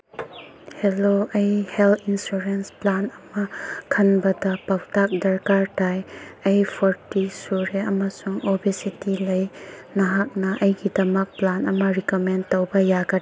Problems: background sounds at intervals